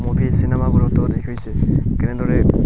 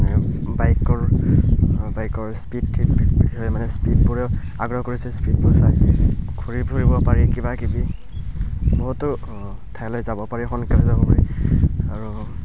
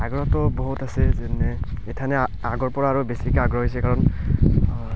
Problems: background sounds at intervals, background conversations at intervals